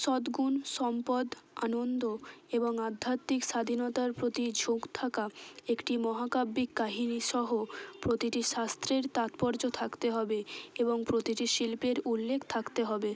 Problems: constant background noise, background conversations at intervals